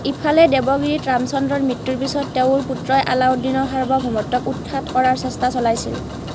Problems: constant background noise